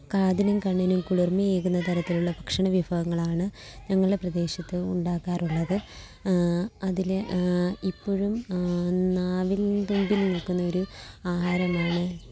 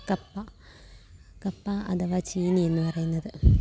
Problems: background sounds at intervals, low volume